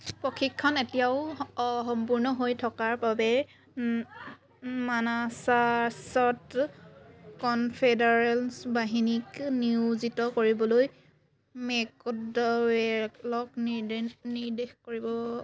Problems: none marked